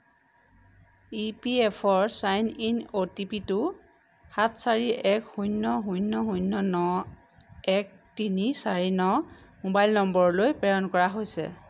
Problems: none marked